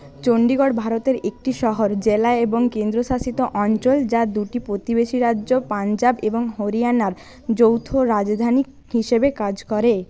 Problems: none marked